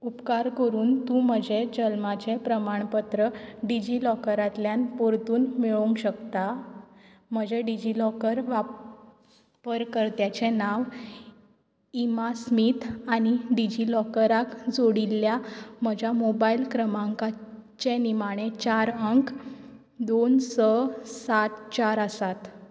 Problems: none marked